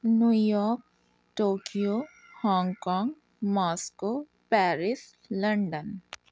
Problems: none marked